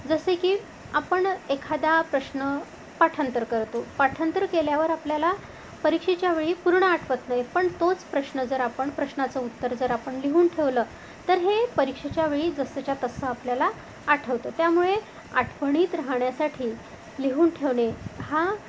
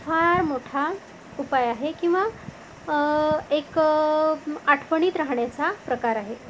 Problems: constant background noise